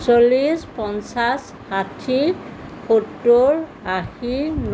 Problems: background sounds at intervals